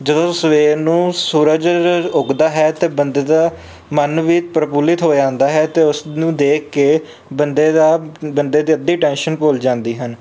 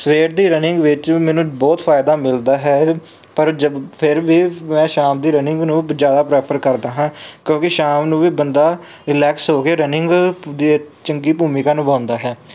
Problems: background sounds at intervals